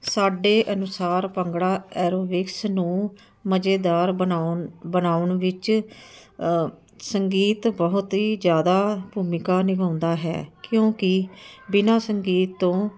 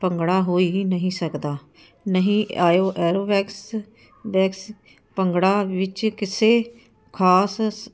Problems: none marked